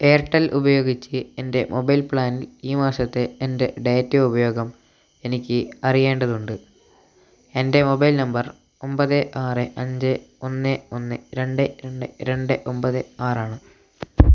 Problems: none marked